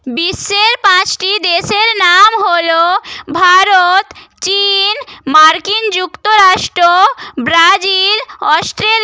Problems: none marked